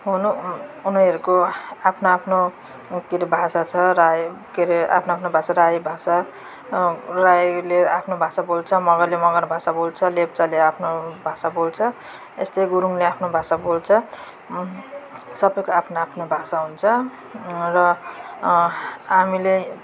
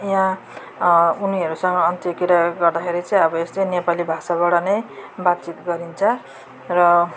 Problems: constant background noise